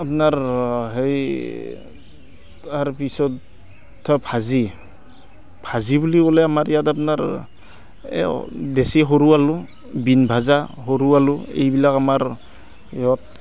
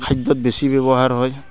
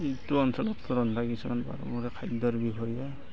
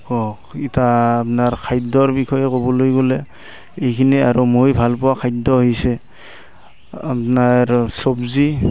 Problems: constant background noise, background conversations at intervals